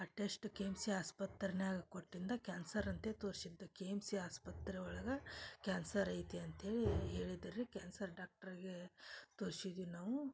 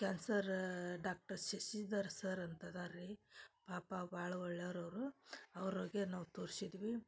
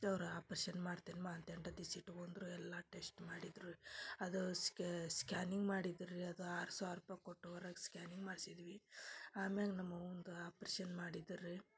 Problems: low volume